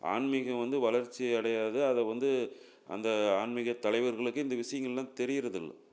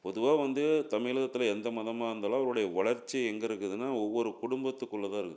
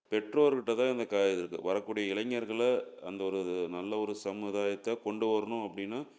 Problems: none marked